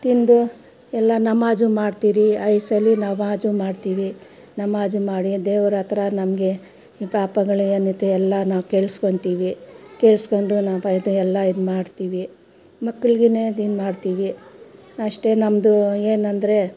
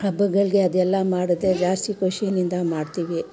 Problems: background conversations at intervals